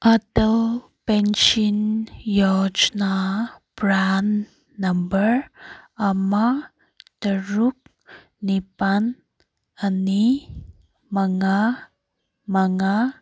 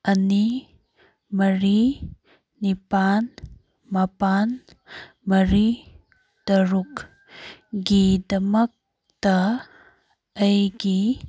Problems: none marked